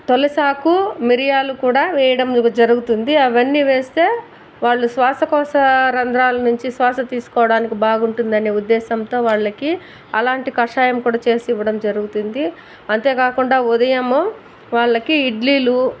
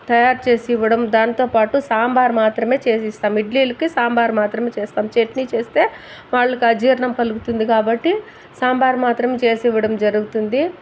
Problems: none marked